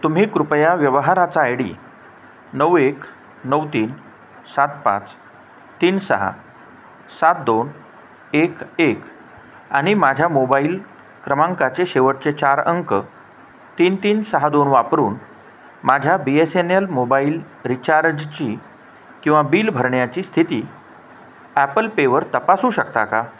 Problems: constant background noise